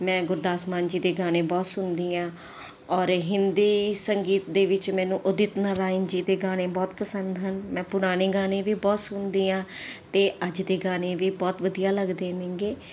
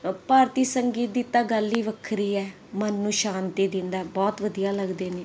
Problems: none marked